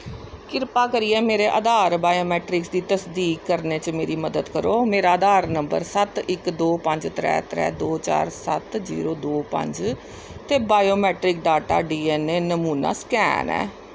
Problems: constant background noise